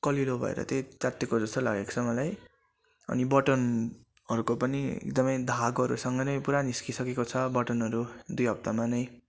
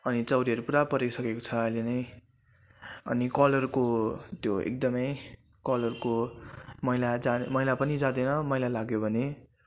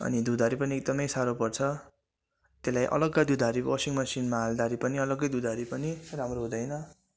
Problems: constant background noise